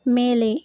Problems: none marked